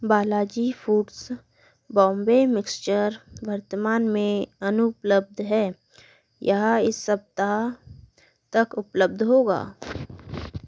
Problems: none marked